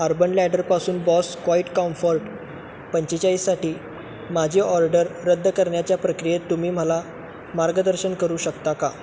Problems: constant background noise, continuous background conversations